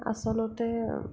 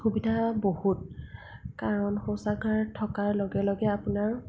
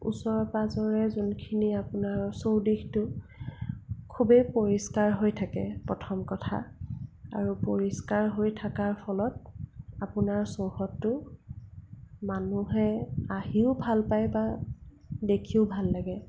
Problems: low volume